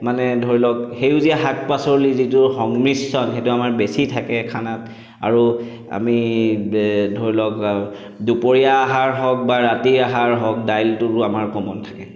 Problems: echo